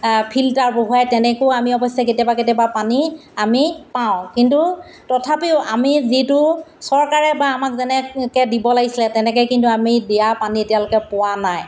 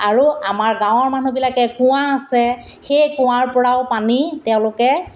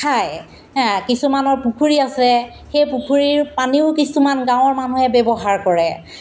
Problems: constant background noise